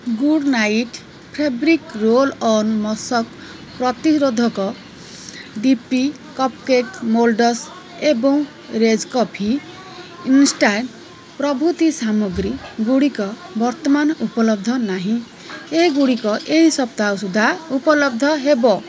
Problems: constant background noise